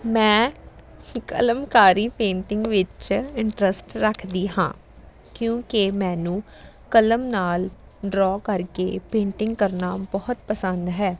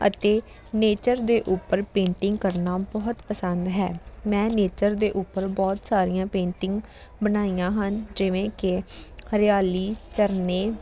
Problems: none marked